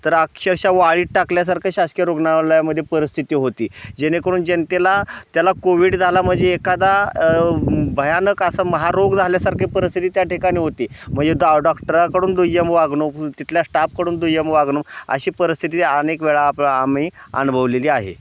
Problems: constant background noise